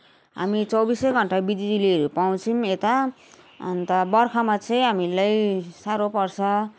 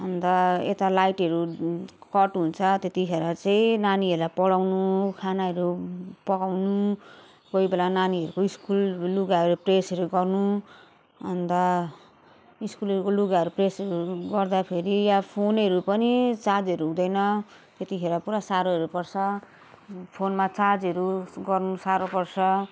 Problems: continuous background conversations